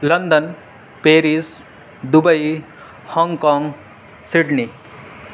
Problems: constant background noise